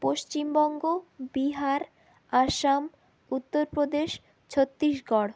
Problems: none marked